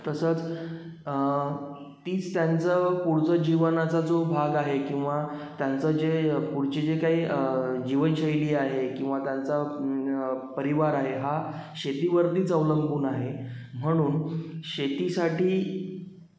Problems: background sounds at intervals, echo